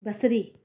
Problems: none marked